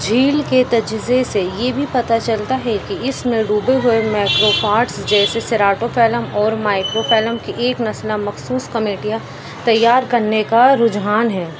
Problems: constant background noise